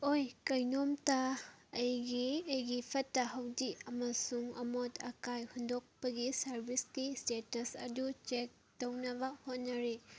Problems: background sounds at intervals